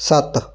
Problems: none marked